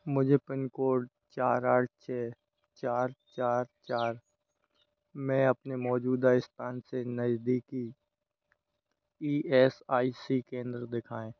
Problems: none marked